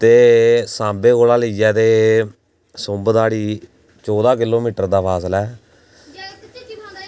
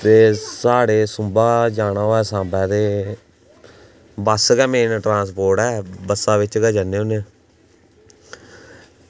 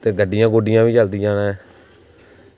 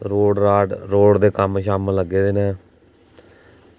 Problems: none marked